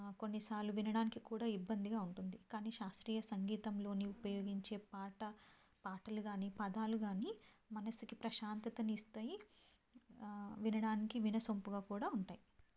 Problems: none marked